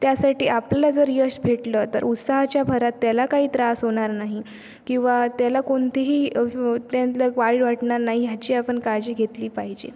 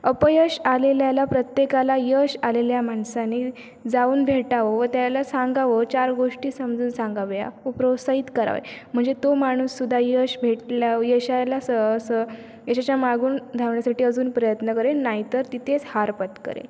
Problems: none marked